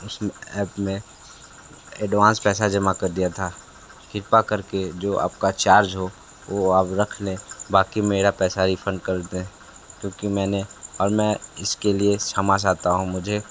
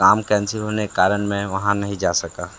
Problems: constant background noise